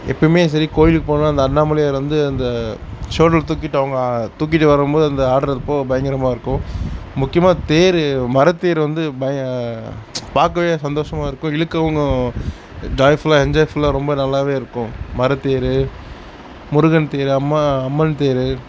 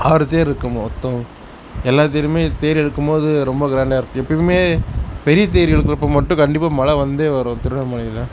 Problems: constant background noise